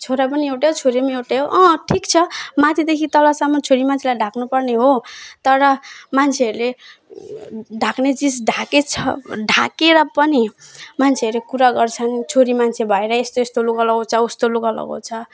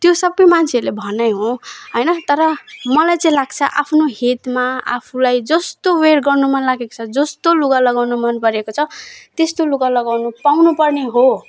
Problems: none marked